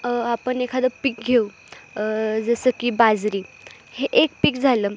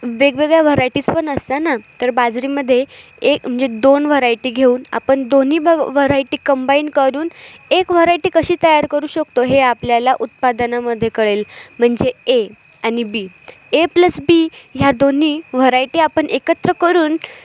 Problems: none marked